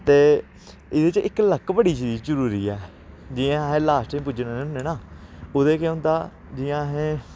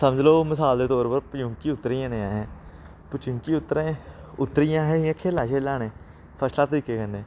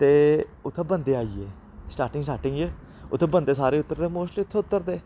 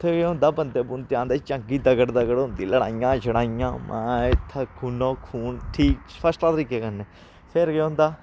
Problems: constant background noise